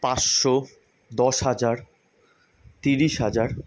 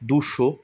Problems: constant background noise